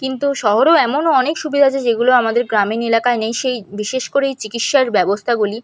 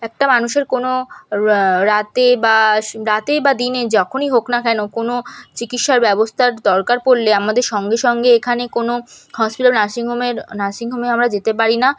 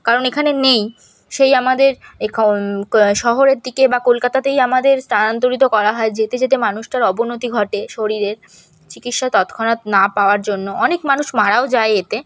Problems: background sounds at intervals